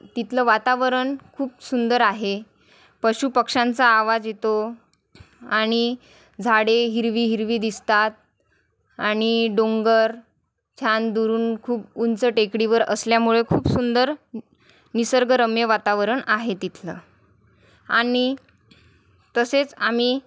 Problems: constant background noise, background conversations at intervals